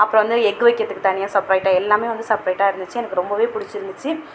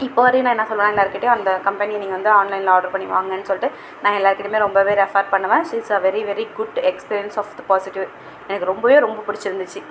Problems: background sounds at intervals